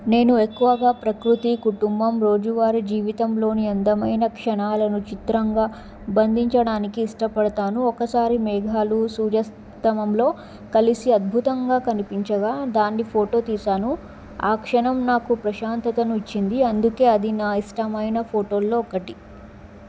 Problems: none marked